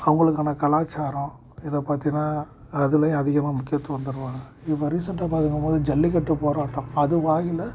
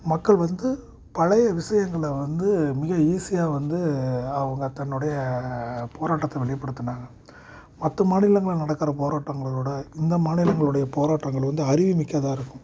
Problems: constant background noise